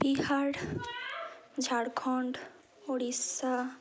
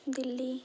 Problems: constant background noise, background conversations at intervals